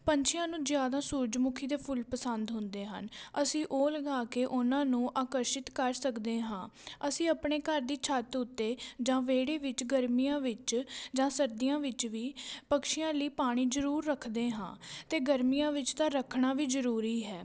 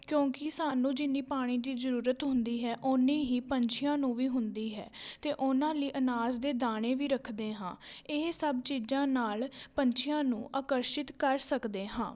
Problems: background sounds at intervals